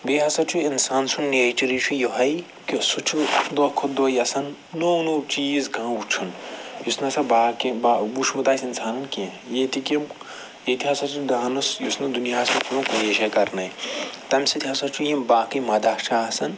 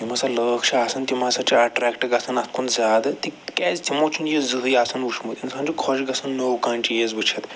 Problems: background sounds at intervals